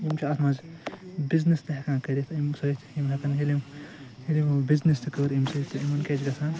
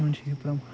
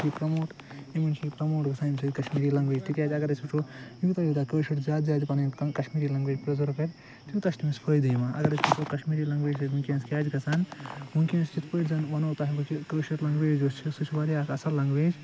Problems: constant background noise